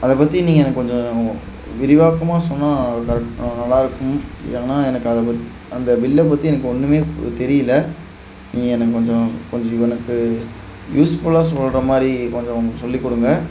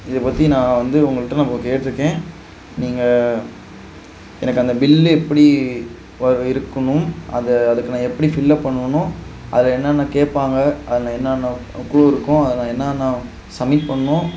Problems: background sounds at intervals